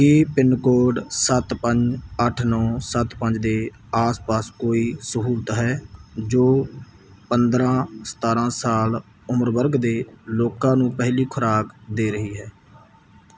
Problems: background sounds at intervals